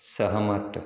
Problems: none marked